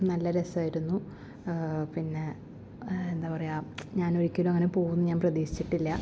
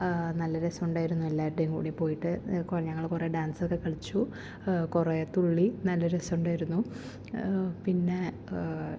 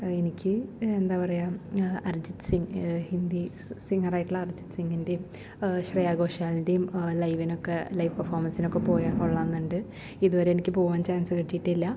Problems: none marked